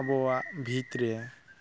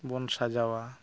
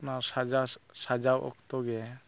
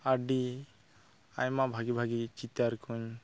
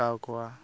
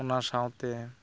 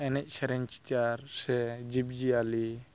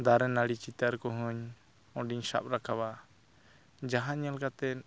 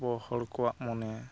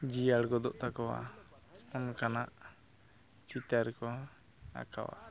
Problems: background conversations at intervals